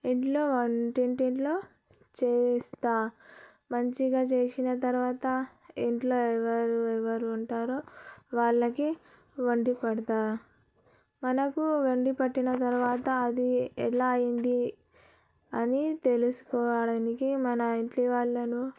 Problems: low volume